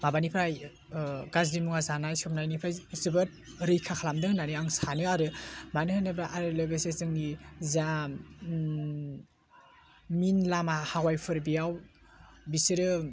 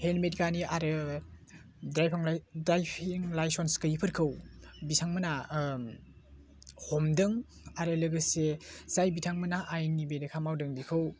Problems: constant background noise